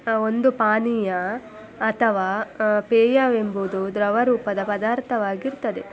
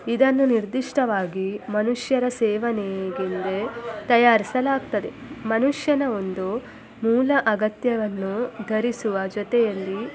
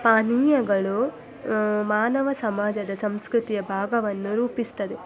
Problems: constant background noise, background conversations at intervals